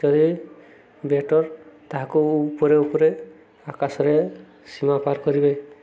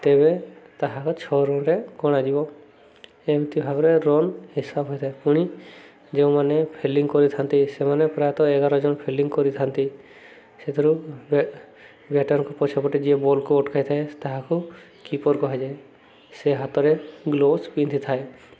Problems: none marked